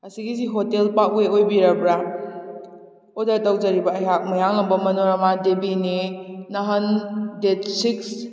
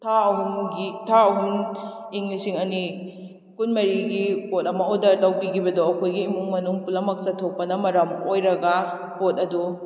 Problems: none marked